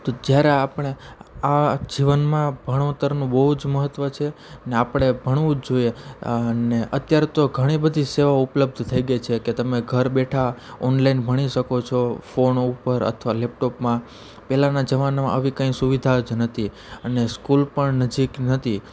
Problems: none marked